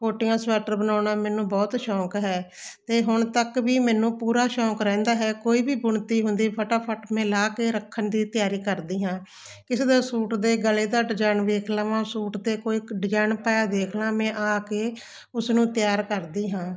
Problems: constant background noise